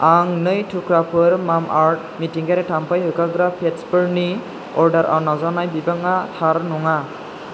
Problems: constant background noise